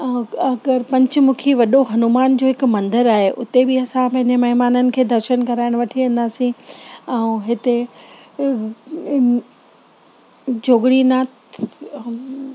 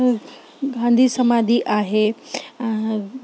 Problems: constant background noise, background conversations at intervals